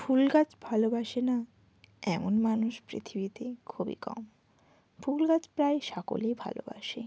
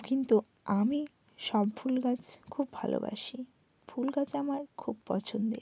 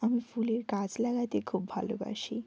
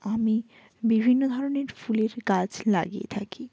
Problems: background sounds at intervals